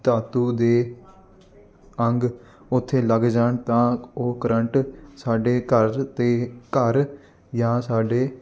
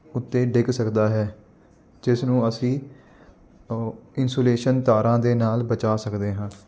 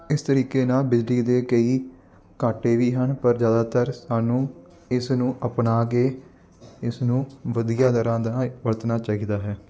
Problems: constant background noise